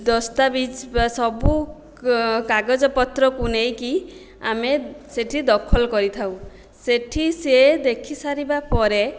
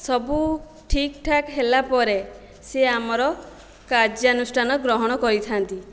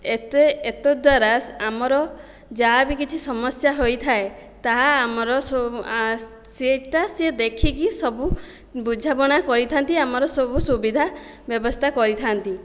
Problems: none marked